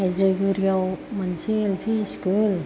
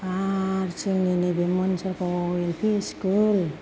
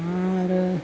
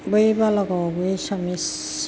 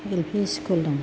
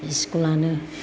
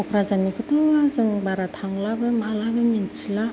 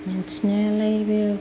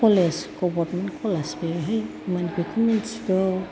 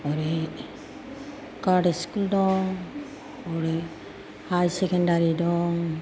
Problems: background sounds at intervals